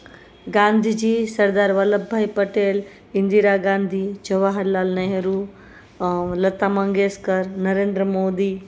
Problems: none marked